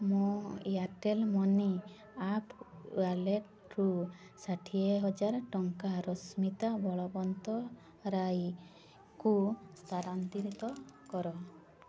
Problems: constant background noise, continuous background conversations